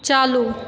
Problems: none marked